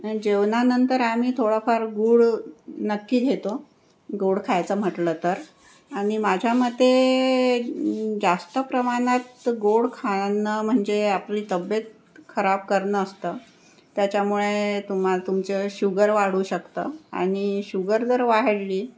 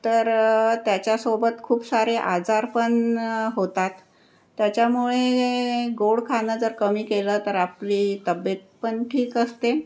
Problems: none marked